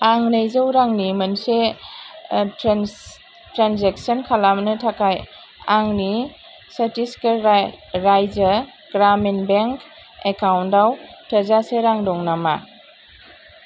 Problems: constant background noise